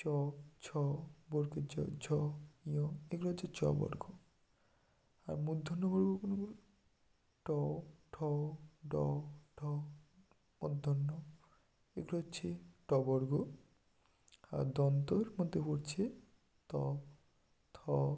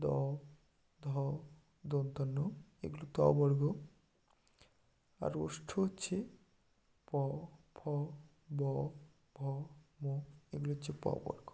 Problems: none marked